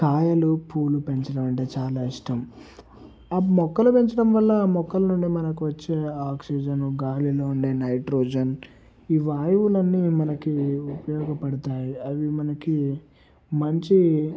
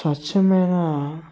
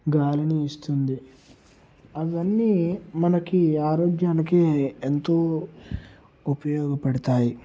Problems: constant background noise